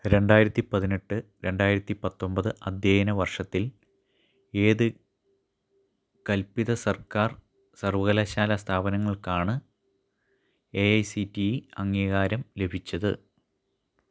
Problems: low volume